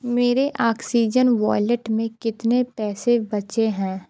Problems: constant background noise, continuous background conversations